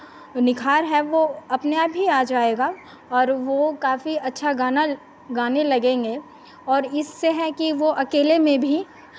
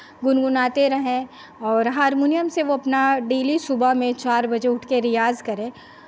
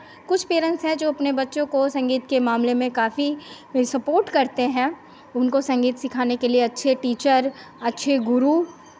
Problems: none marked